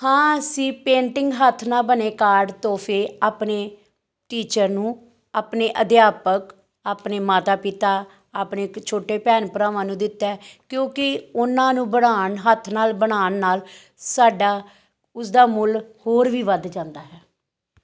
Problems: background conversations at intervals